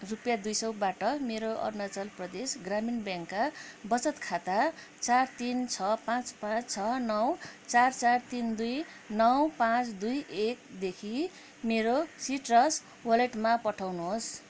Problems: none marked